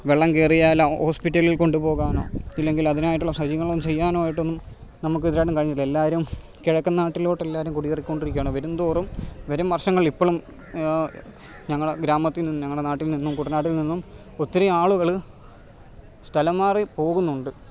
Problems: background sounds at intervals